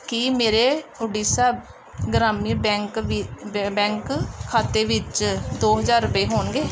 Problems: none marked